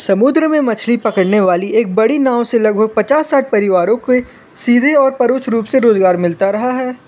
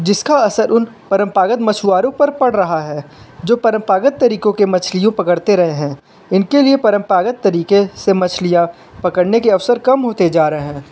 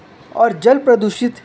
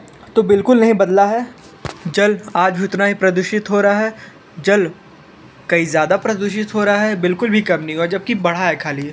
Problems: constant background noise